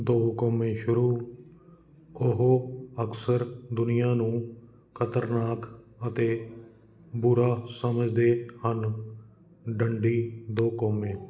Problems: continuous background conversations